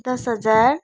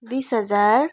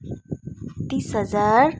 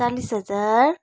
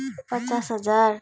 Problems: none marked